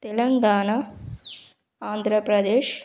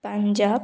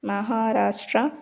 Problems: background sounds at intervals